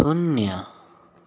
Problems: constant background noise